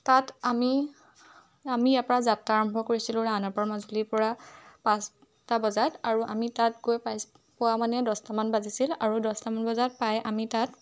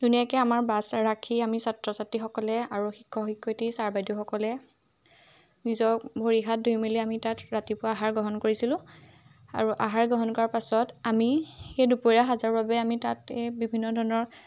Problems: none marked